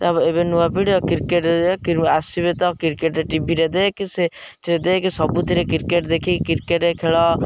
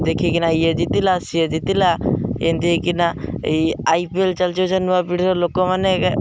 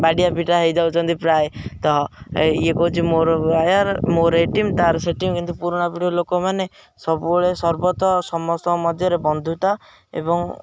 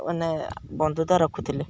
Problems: background sounds at intervals